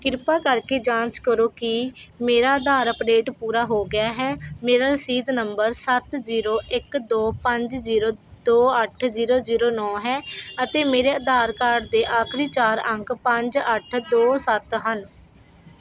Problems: none marked